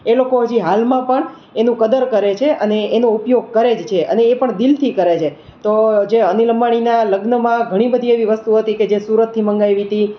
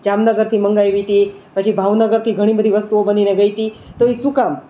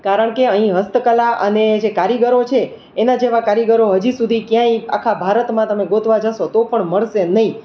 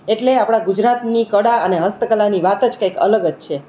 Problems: none marked